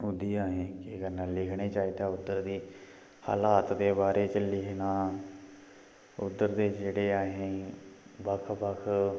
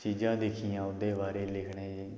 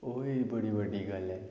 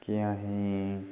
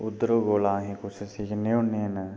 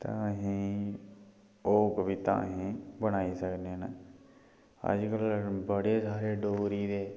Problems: echo